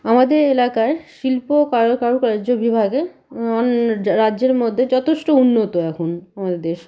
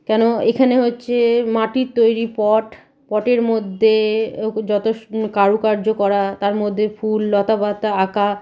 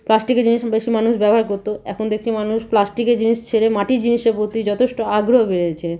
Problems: none marked